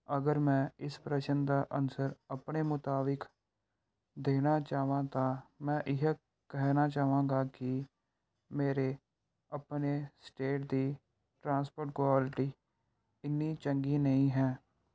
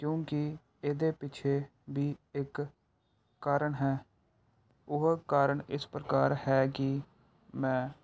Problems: background sounds at intervals